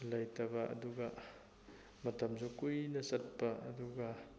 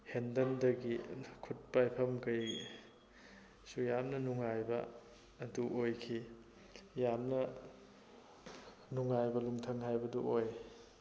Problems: constant background noise